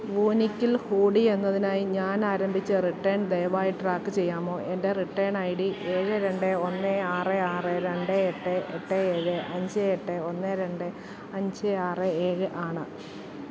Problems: constant background noise